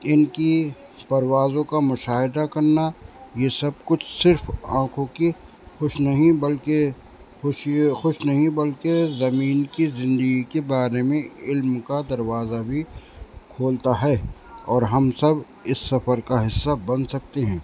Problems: constant background noise